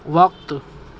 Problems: constant background noise